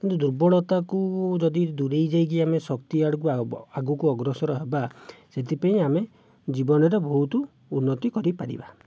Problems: none marked